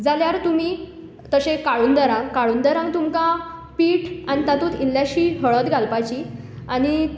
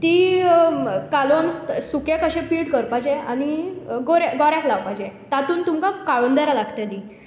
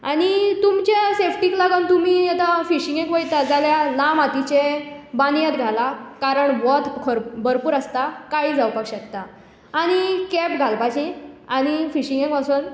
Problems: background sounds at intervals